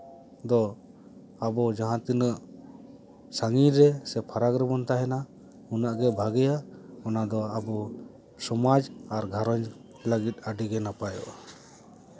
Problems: none marked